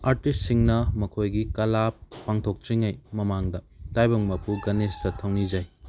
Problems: background sounds at intervals